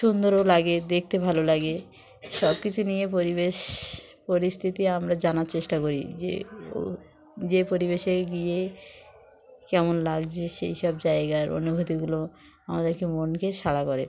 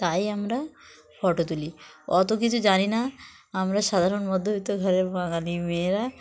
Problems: constant background noise, continuous background conversations